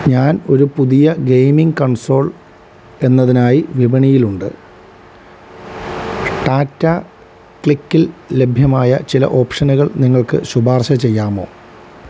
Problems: constant background noise